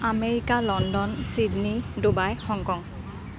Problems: background sounds at intervals